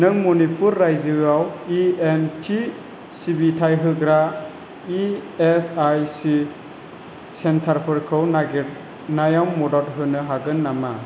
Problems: constant background noise